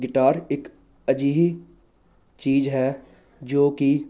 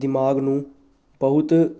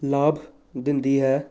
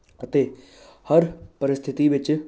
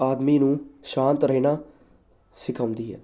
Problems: none marked